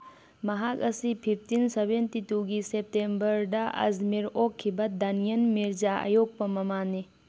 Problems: background sounds at intervals